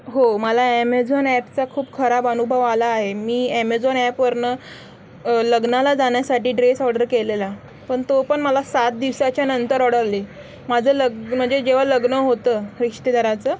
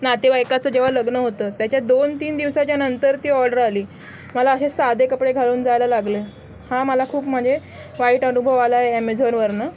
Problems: constant background noise